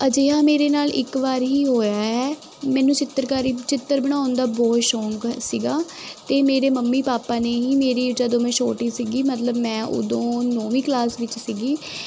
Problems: constant background noise